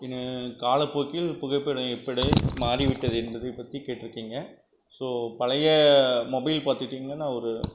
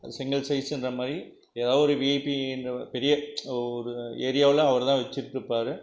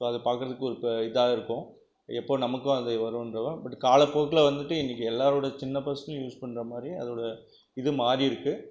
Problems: background sounds at intervals